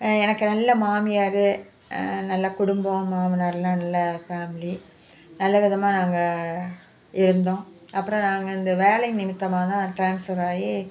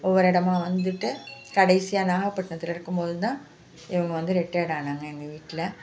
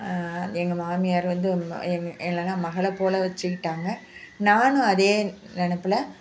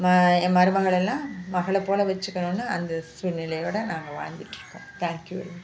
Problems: constant background noise